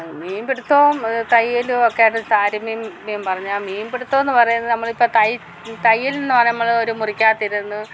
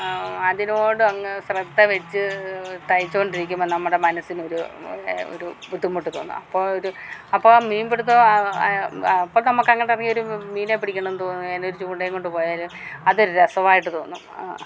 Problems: background sounds at intervals